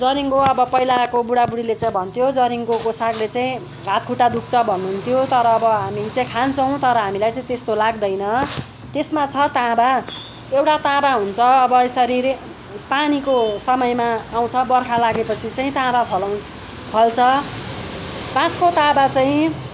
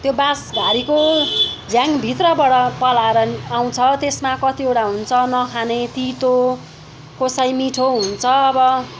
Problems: background sounds at intervals, background conversations at intervals